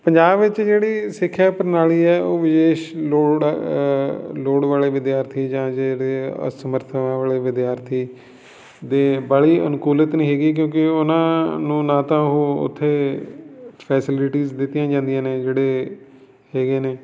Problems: background sounds at intervals